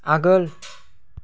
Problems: none marked